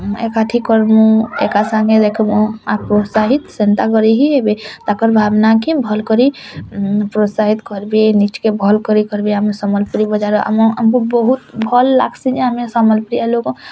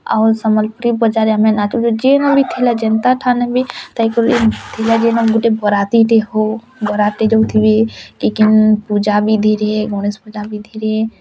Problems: constant background noise